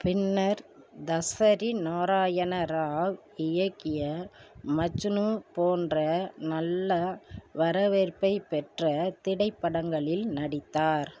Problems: none marked